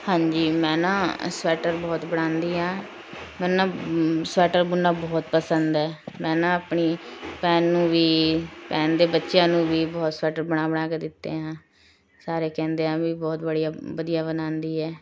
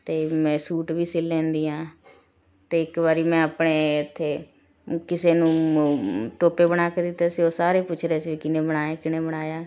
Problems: constant background noise